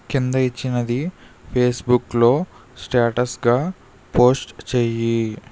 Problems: none marked